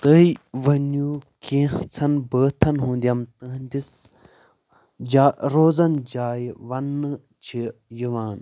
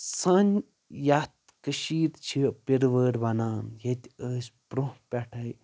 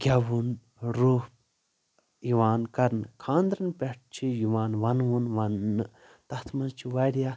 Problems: constant background noise